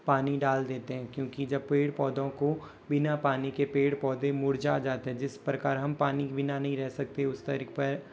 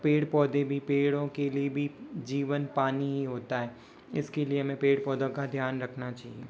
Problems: constant background noise